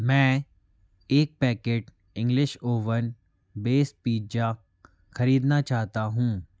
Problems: constant background noise